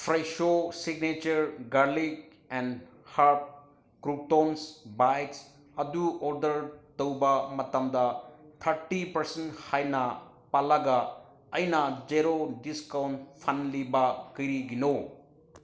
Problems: background sounds at intervals